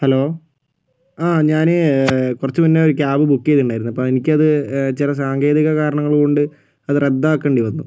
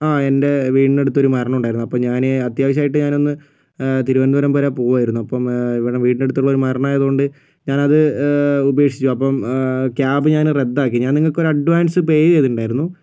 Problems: none marked